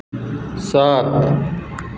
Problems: constant background noise